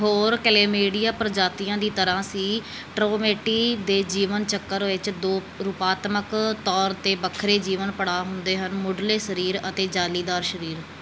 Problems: background sounds at intervals